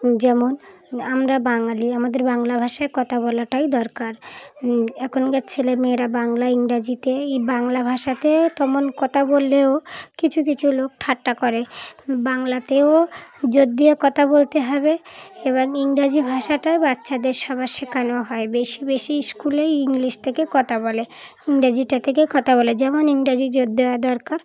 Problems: none marked